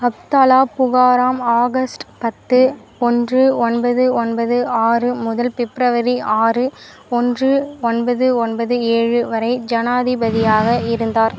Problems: constant background noise